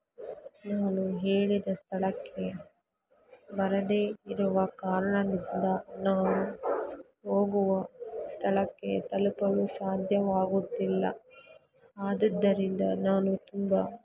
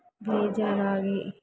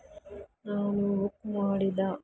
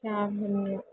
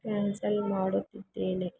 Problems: background sounds at intervals